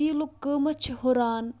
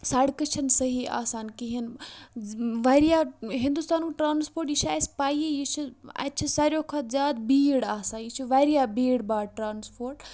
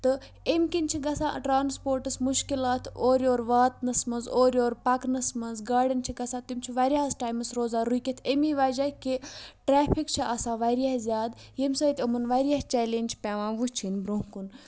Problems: background sounds at intervals